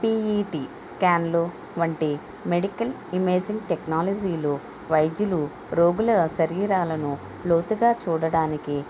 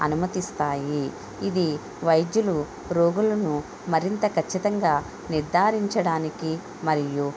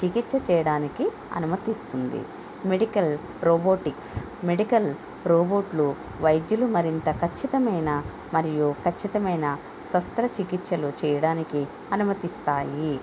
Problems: none marked